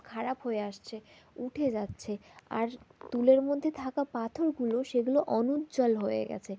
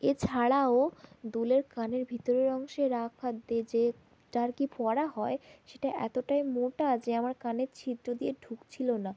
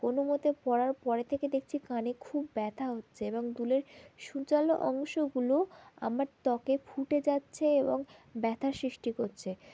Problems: none marked